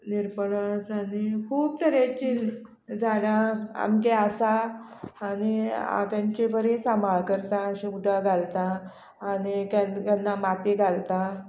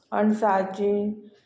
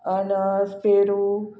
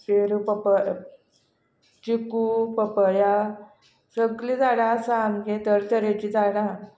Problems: constant background noise